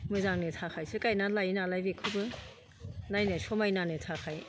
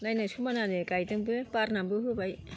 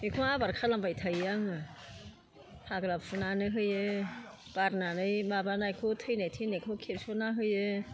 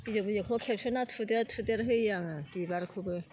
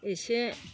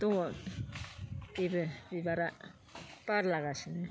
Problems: constant background noise